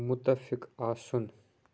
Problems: background sounds at intervals